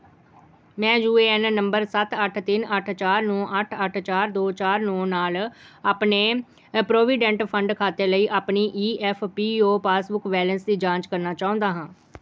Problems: background sounds at intervals